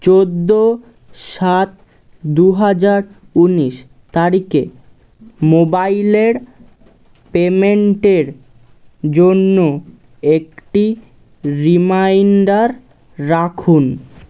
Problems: none marked